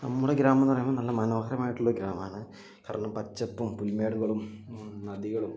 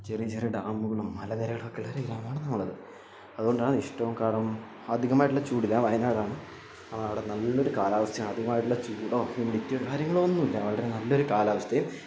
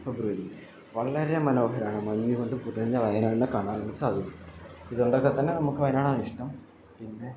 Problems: low volume